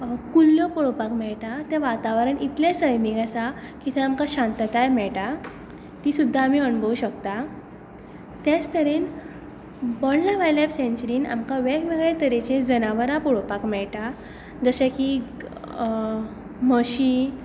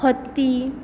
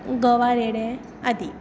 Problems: echo